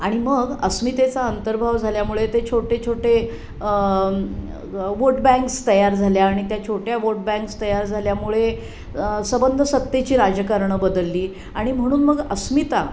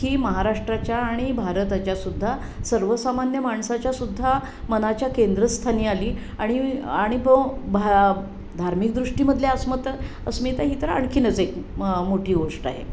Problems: none marked